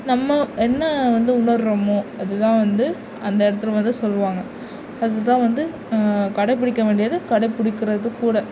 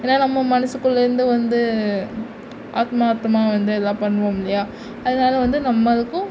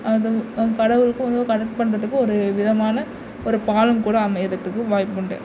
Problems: none marked